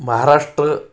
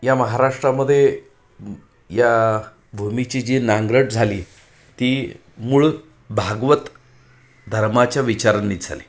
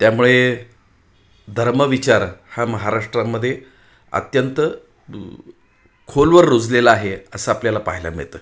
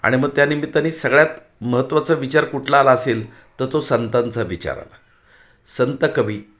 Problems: background sounds at intervals